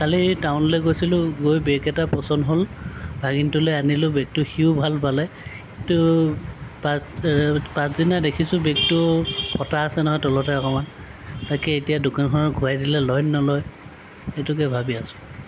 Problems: none marked